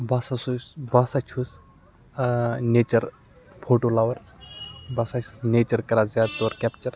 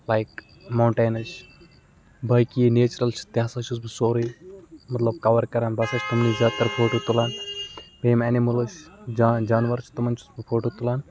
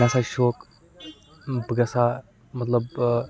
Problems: background sounds at intervals